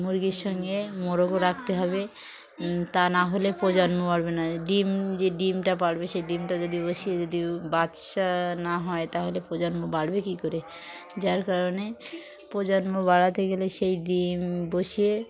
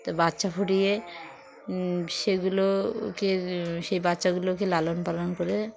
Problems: none marked